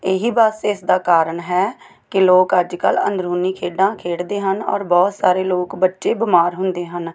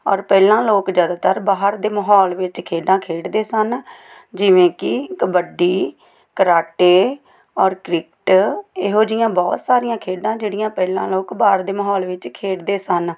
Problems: background sounds at intervals